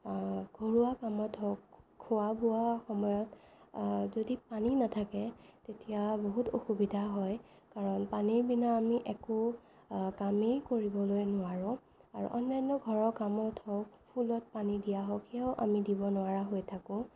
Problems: none marked